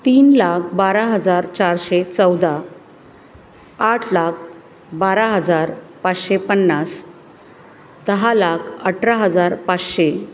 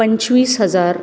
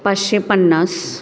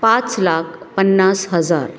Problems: constant background noise, background conversations at intervals